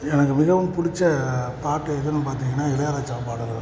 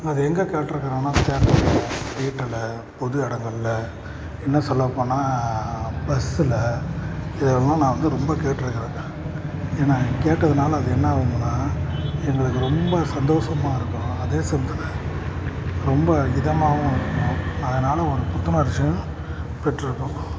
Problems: constant background noise